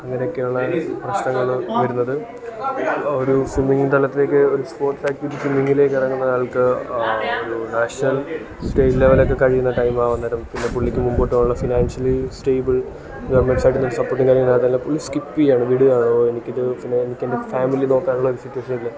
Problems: constant background noise, background conversations at intervals